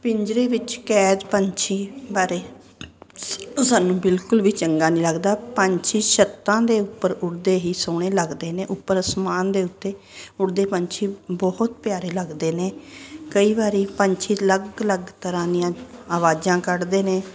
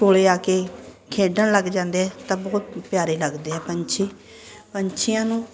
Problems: constant background noise